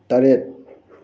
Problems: none marked